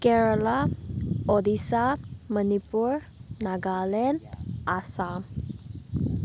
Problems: constant background noise